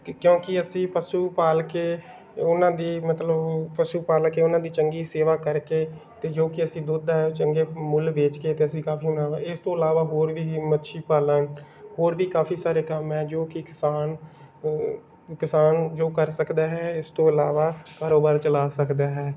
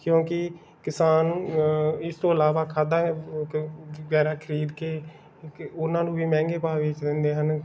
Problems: background sounds at intervals